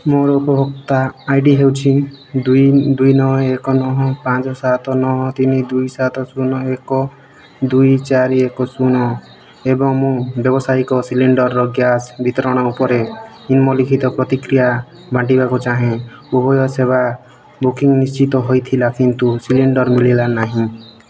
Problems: none marked